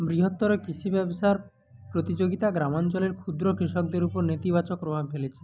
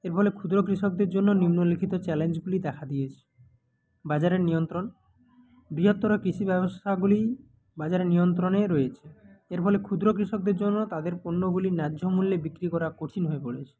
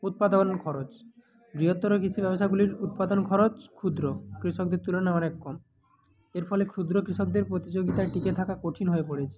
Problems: background sounds at intervals